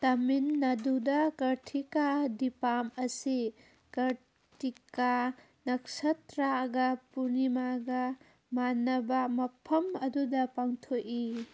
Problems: none marked